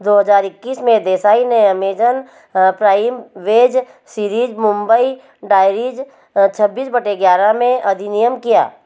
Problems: none marked